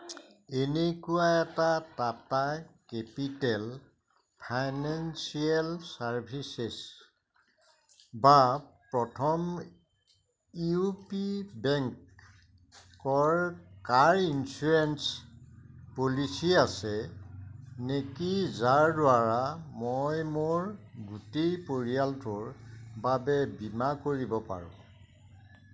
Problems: none marked